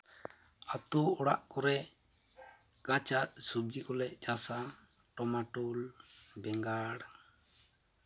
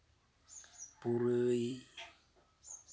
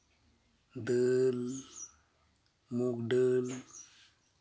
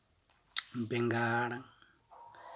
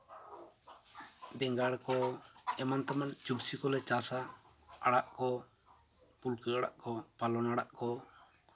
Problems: background sounds at intervals, continuous background conversations